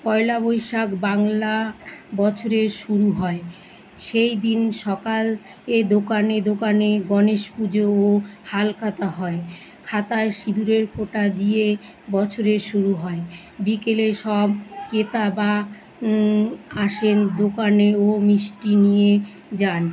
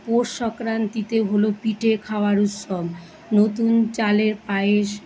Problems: constant background noise, continuous background conversations